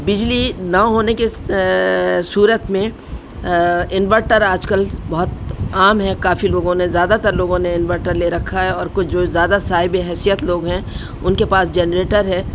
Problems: constant background noise